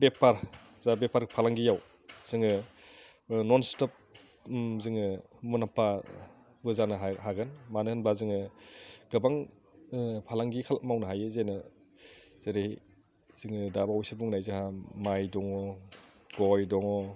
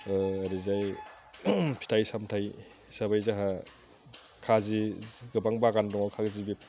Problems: none marked